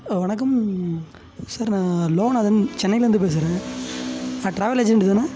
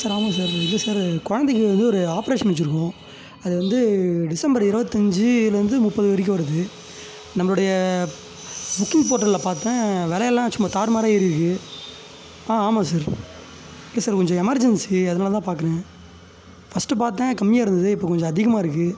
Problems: constant background noise